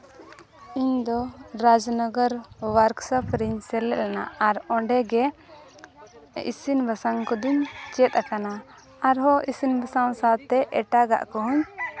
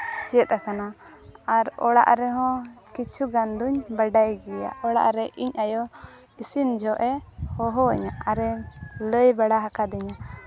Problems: background conversations at intervals